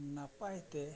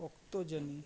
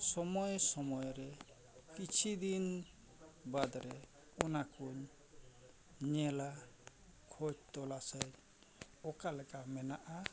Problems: background sounds at intervals, low volume